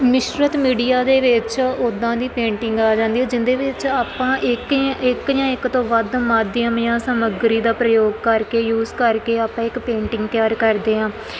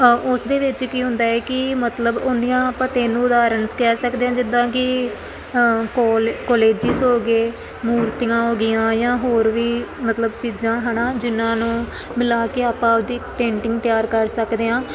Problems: constant background noise